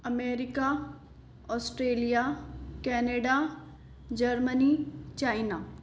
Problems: constant background noise, echo